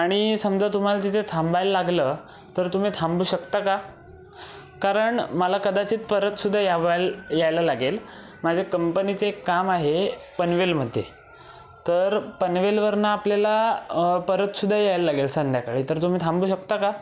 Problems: background sounds at intervals